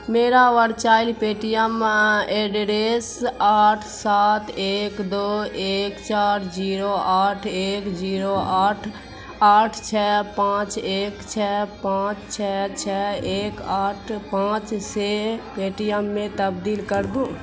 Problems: constant background noise